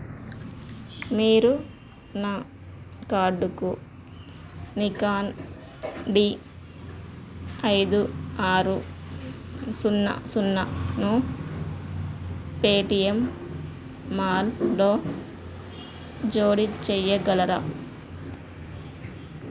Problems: background sounds at intervals